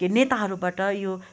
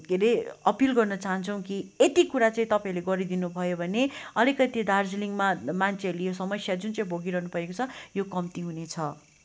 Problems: none marked